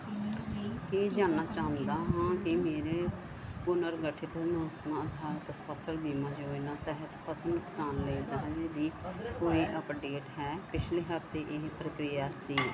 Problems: none marked